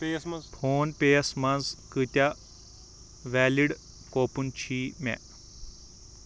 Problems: background conversations at intervals